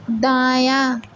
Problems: constant background noise